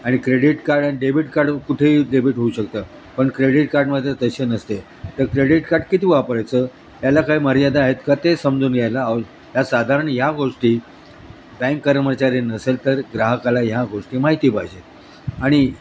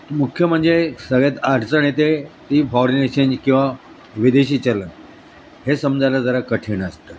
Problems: constant background noise, background conversations at intervals